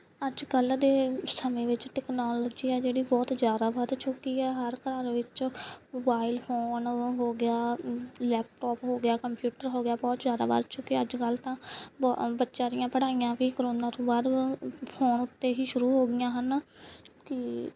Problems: background sounds at intervals